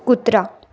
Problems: none marked